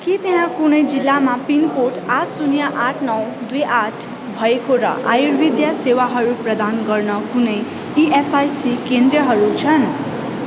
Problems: constant background noise